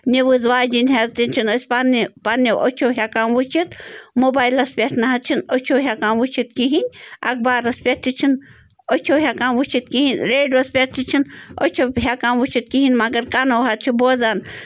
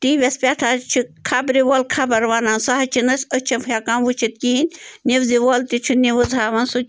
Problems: background sounds at intervals